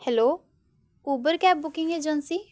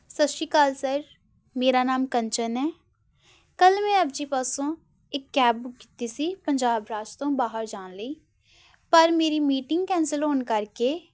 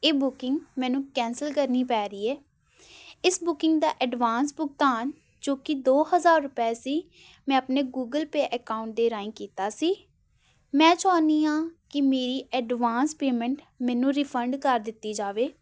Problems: background sounds at intervals